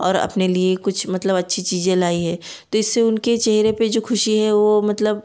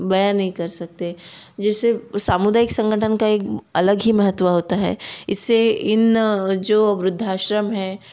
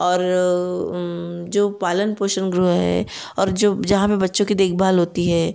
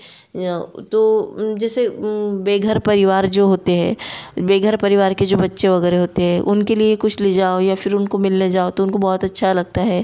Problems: none marked